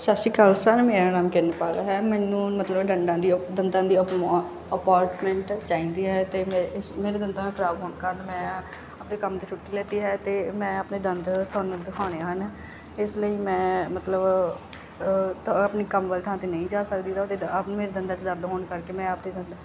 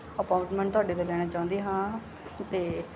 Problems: none marked